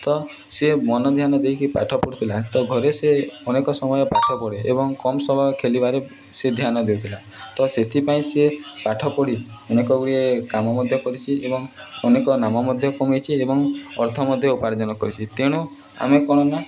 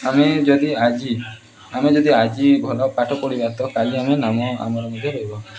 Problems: background sounds at intervals, continuous background conversations